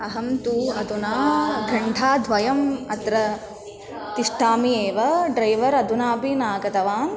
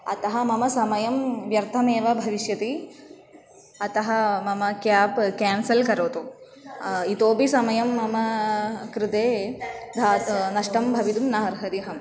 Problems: constant background noise